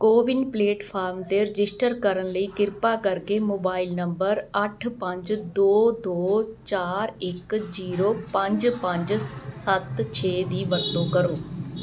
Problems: constant background noise